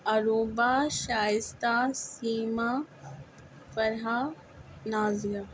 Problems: constant background noise